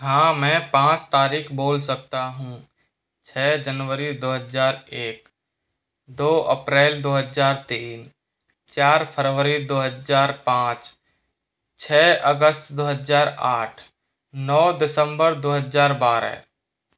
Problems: constant background noise